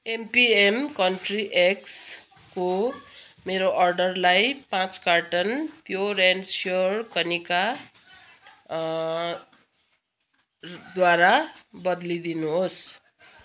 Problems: none marked